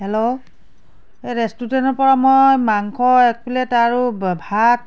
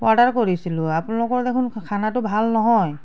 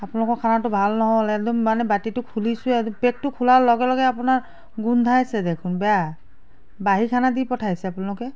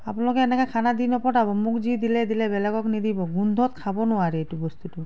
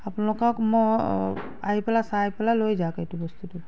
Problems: none marked